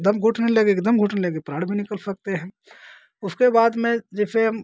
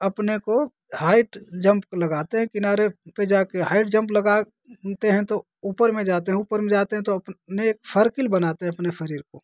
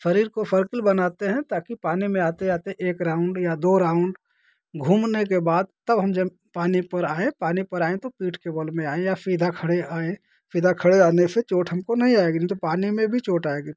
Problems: constant background noise